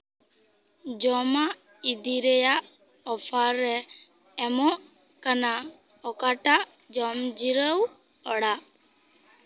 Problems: constant background noise